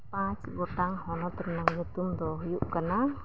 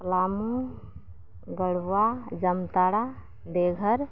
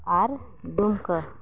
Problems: none marked